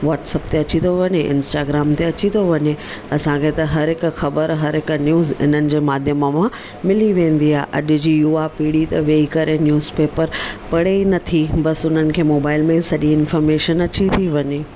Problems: none marked